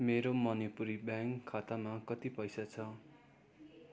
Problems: constant background noise